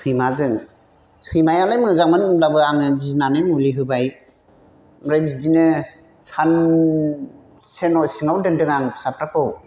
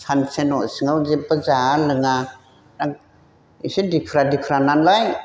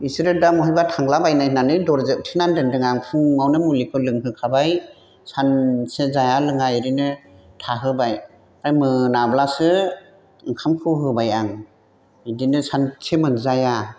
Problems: constant background noise